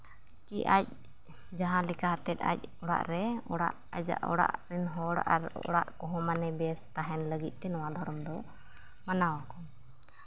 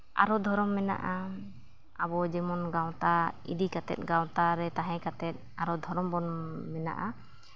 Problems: low volume